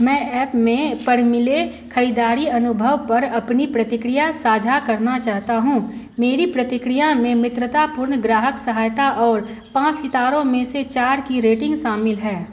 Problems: constant background noise